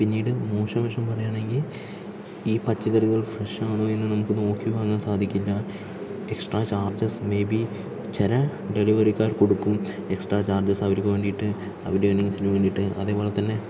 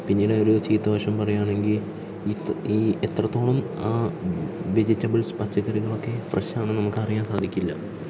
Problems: low volume